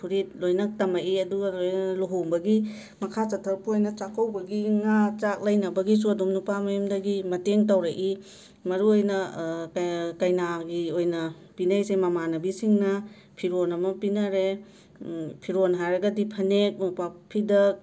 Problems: none marked